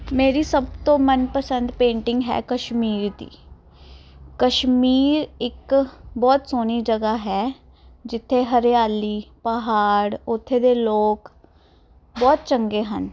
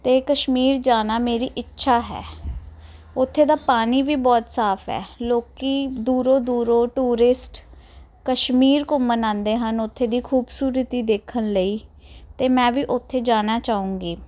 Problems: background conversations at intervals